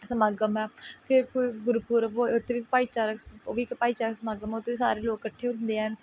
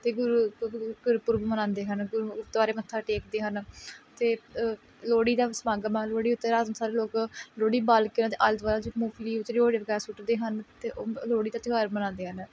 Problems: background conversations at intervals